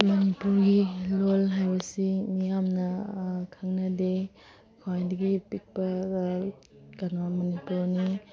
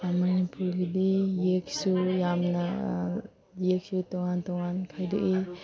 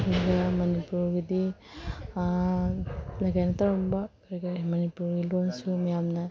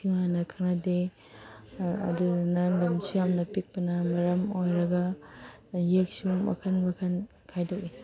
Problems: background sounds at intervals